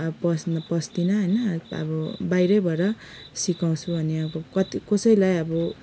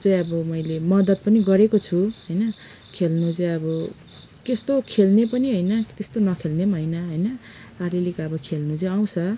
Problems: background sounds at intervals